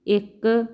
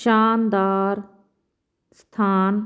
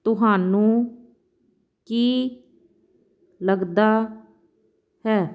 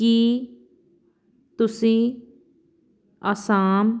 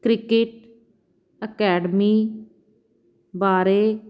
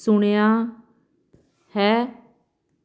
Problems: none marked